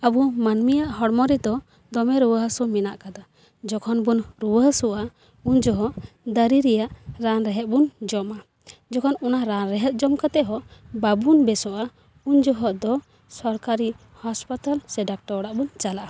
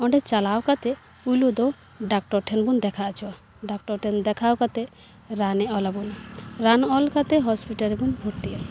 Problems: constant background noise, background conversations at intervals